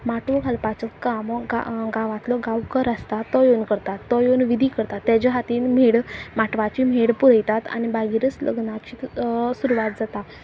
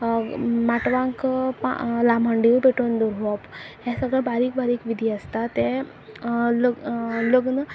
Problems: background sounds at intervals